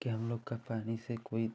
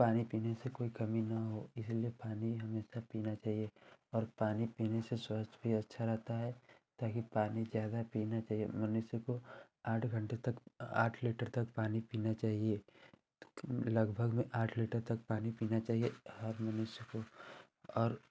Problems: constant background noise